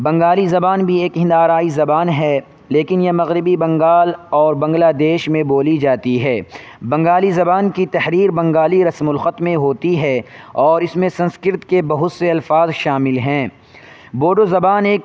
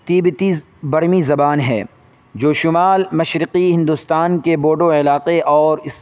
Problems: constant background noise